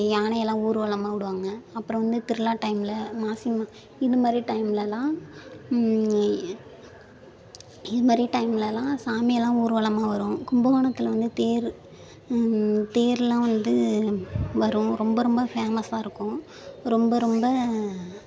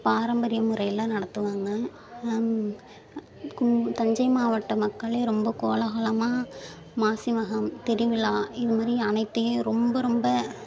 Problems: background sounds at intervals, continuous background conversations